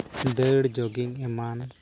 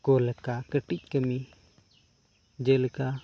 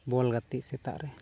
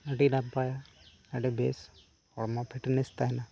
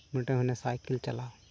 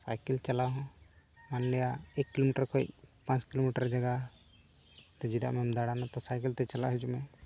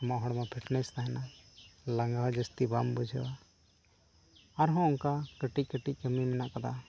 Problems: none marked